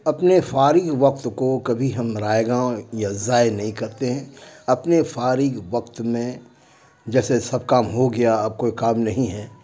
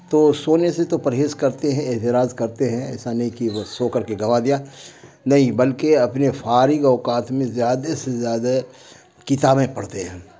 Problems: constant background noise